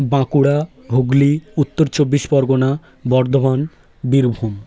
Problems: background sounds at intervals, continuous background conversations